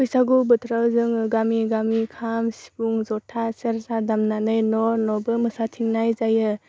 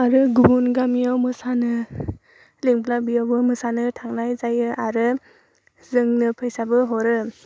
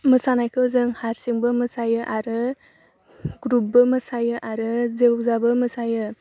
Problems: none marked